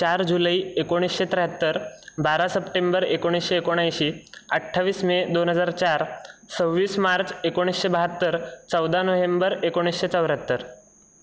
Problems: constant background noise, background conversations at intervals